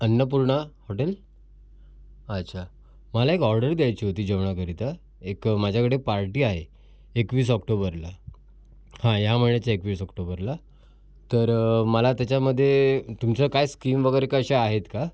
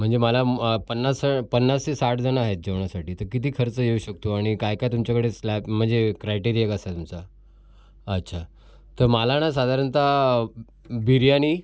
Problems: constant background noise, background conversations at intervals